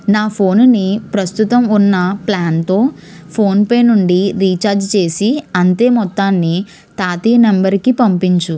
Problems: none marked